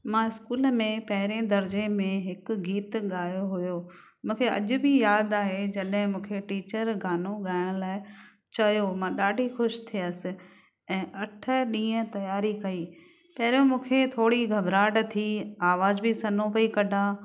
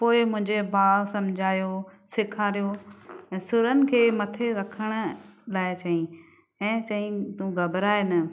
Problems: none marked